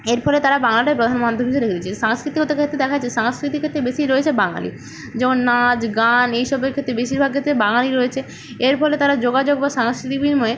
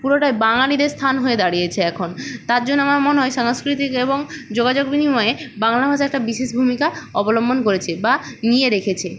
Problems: none marked